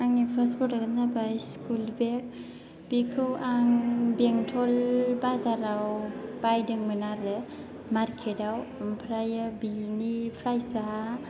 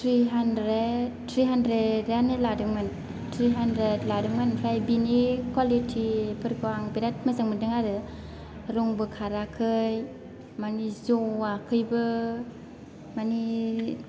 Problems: low volume